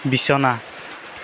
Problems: constant background noise